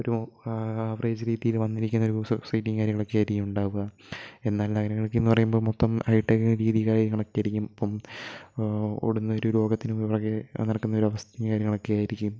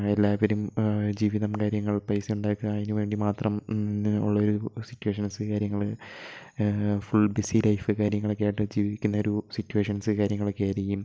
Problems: low volume